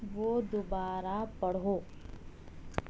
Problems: none marked